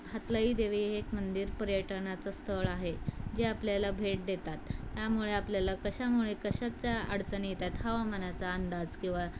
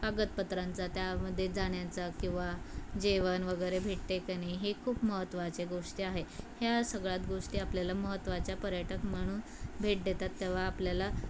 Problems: none marked